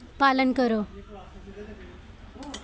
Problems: background sounds at intervals